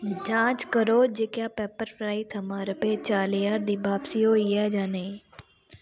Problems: constant background noise